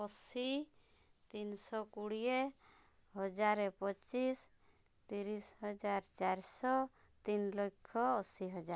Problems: low volume